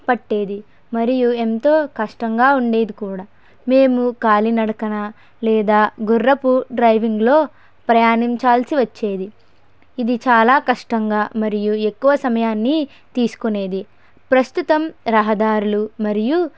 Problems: background sounds at intervals